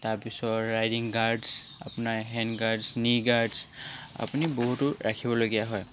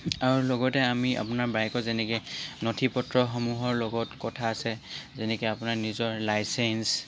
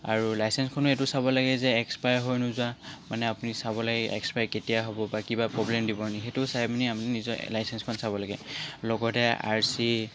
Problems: constant background noise